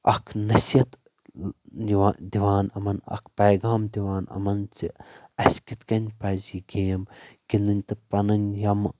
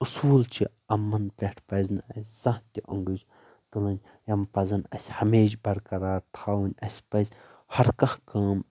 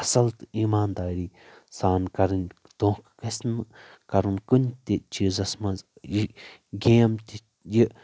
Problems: background sounds at intervals